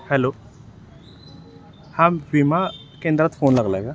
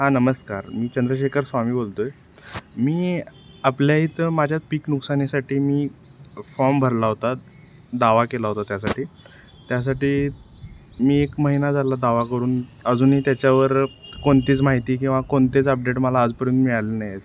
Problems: none marked